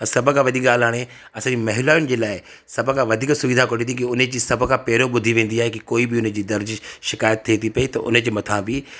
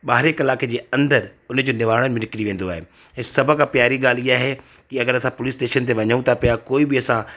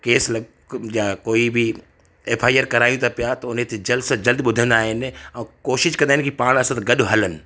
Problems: none marked